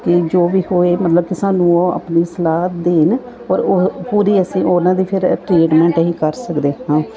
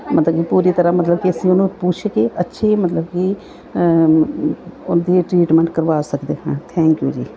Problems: background sounds at intervals